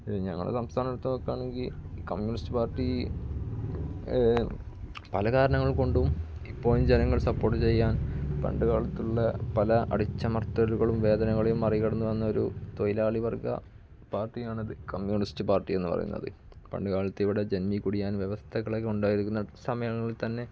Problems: background sounds at intervals, low volume